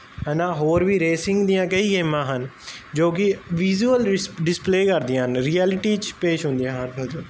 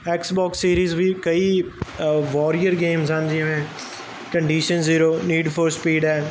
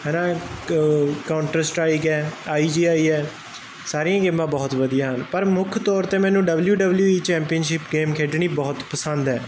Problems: constant background noise